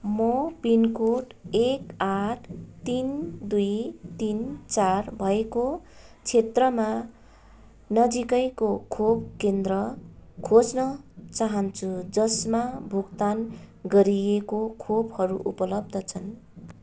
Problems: none marked